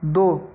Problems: background sounds at intervals